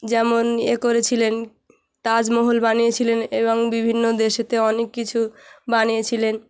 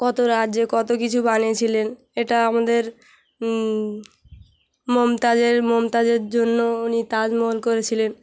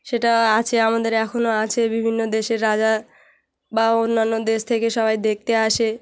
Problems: none marked